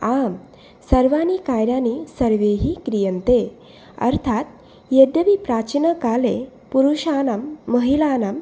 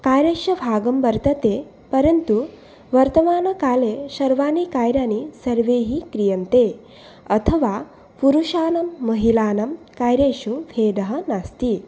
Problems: none marked